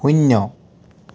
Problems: none marked